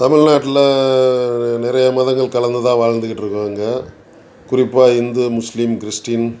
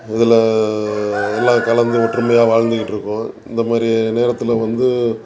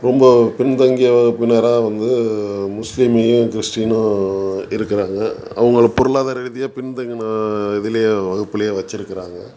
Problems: continuous background conversations